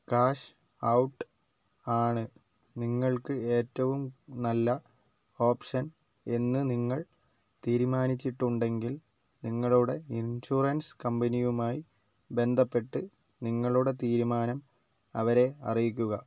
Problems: low volume